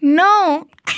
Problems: background sounds at intervals